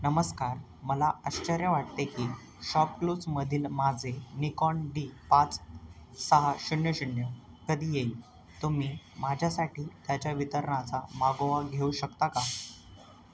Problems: none marked